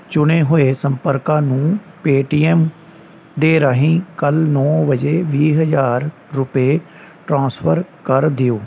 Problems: none marked